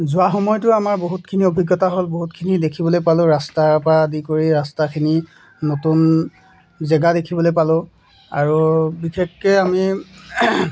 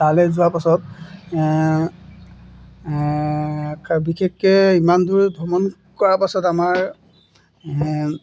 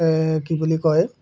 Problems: none marked